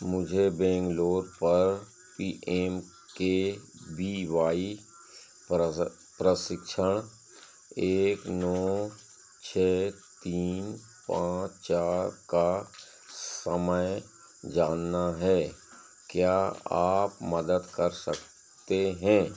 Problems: constant background noise